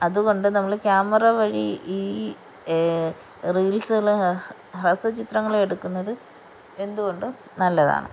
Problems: background sounds at intervals